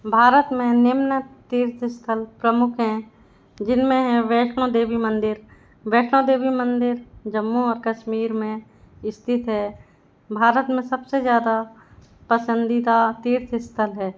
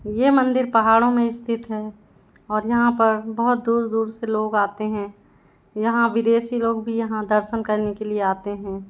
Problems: background sounds at intervals